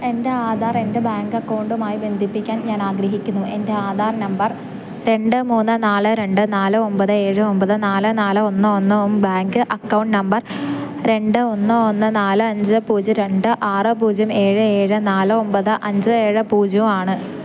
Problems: none marked